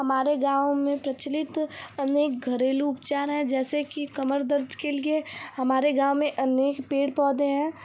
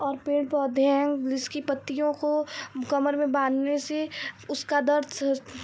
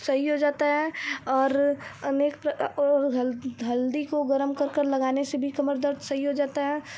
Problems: none marked